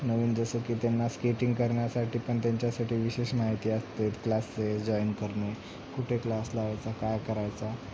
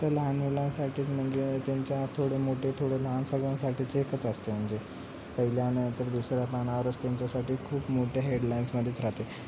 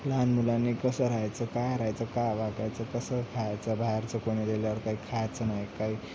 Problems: none marked